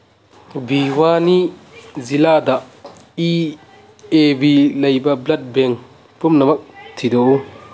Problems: background sounds at intervals